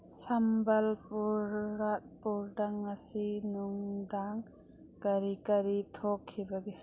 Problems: background sounds at intervals